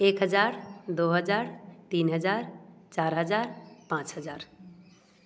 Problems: none marked